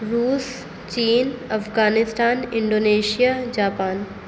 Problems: constant background noise